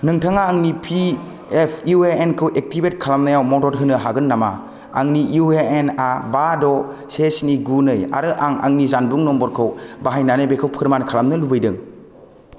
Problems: constant background noise